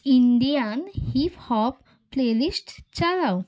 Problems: constant background noise, background conversations at intervals